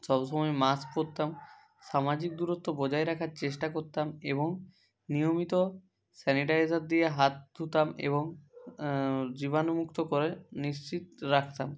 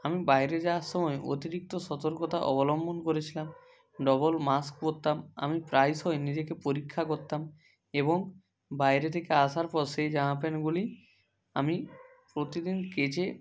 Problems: none marked